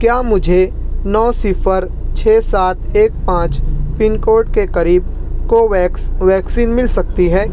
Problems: none marked